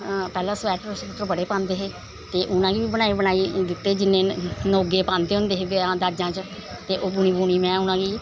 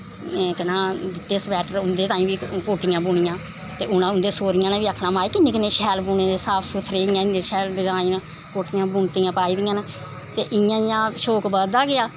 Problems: constant background noise